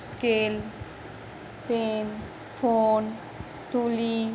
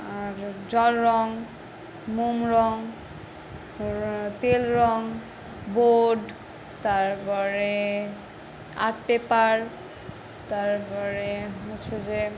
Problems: constant background noise